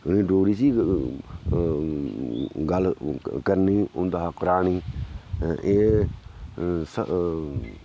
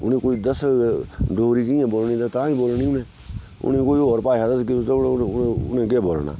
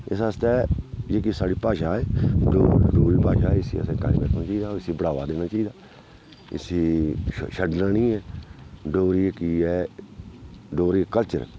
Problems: background sounds at intervals, low volume